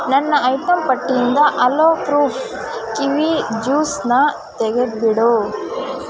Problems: constant background noise